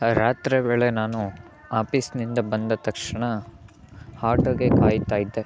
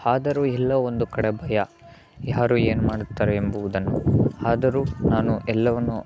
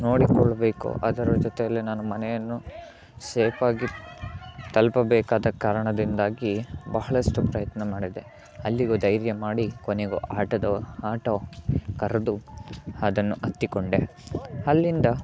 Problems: continuous background conversations